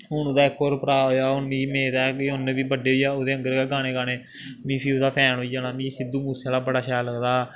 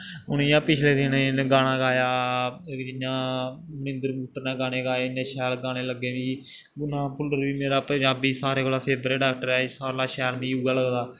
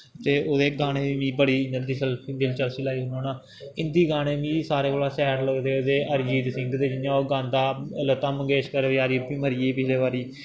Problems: background sounds at intervals